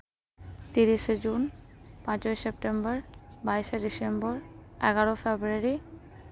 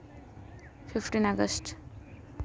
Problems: constant background noise